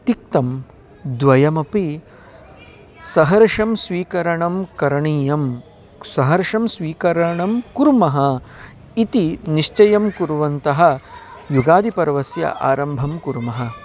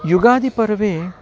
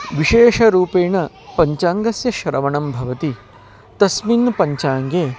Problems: constant background noise, continuous background conversations